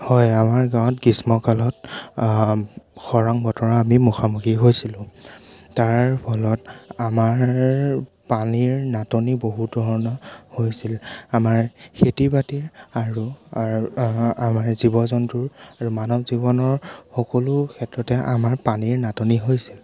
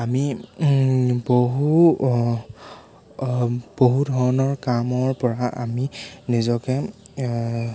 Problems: background sounds at intervals